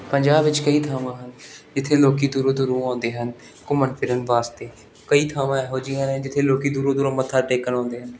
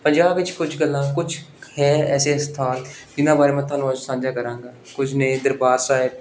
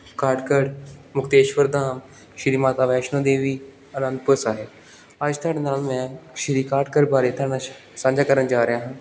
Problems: background sounds at intervals